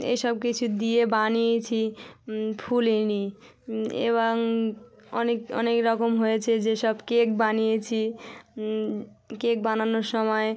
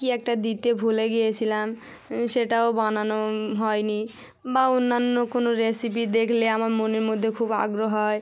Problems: none marked